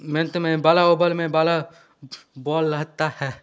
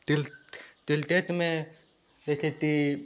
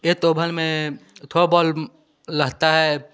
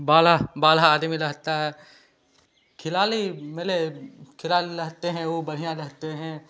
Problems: none marked